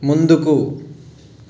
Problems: constant background noise